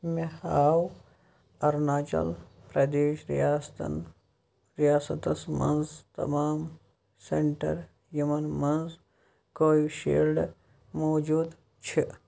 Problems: none marked